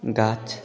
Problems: continuous background conversations